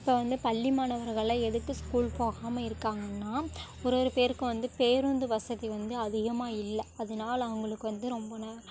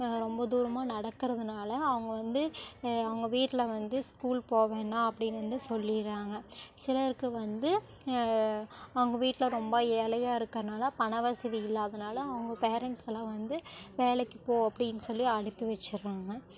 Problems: none marked